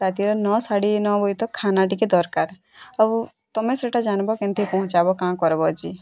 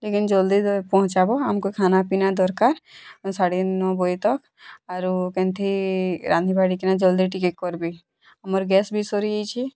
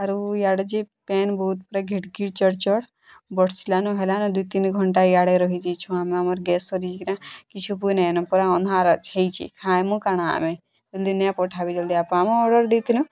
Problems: none marked